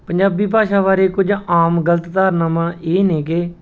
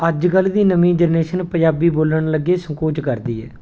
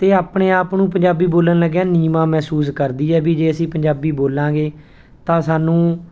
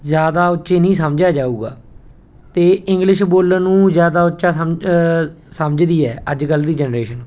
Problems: background sounds at intervals